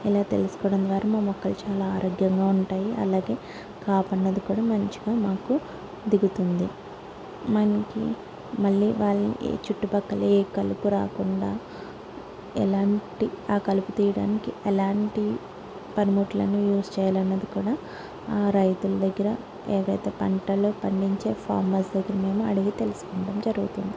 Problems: constant background noise